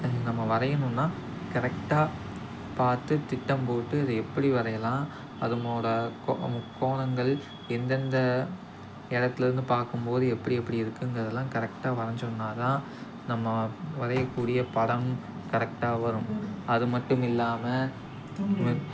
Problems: constant background noise, background conversations at intervals